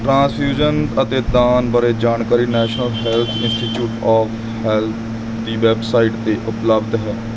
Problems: constant background noise